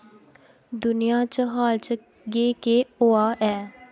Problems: constant background noise